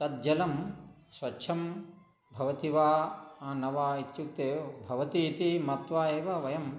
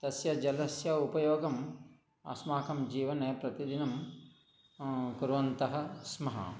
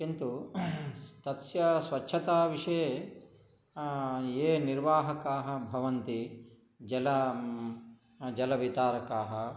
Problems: background sounds at intervals